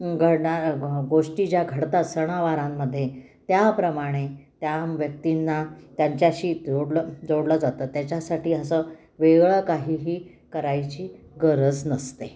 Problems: none marked